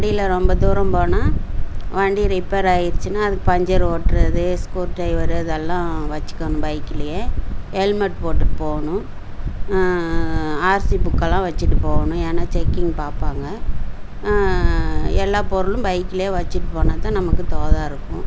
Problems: constant background noise